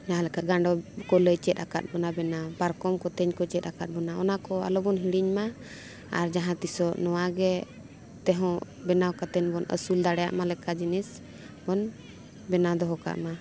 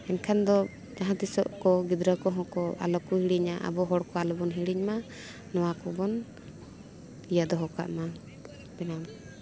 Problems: continuous background conversations